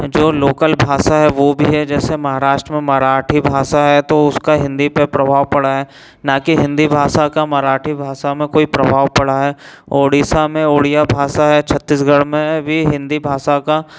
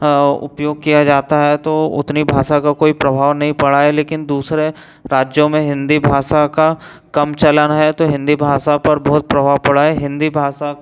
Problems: none marked